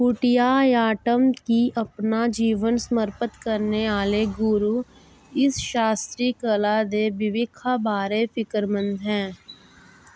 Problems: constant background noise